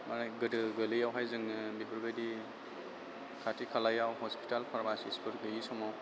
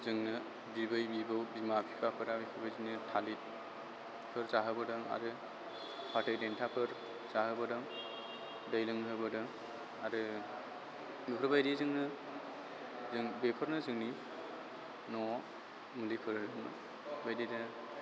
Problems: constant background noise